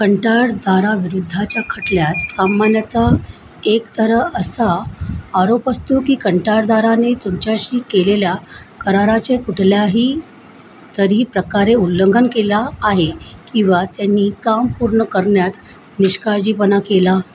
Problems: constant background noise